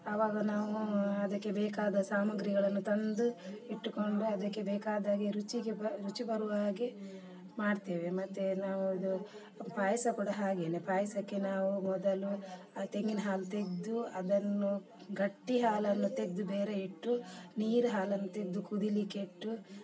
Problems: background sounds at intervals, background conversations at intervals